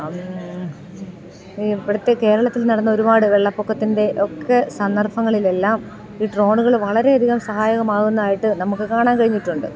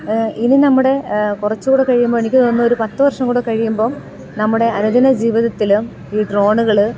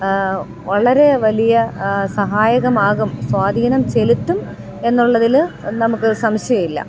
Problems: none marked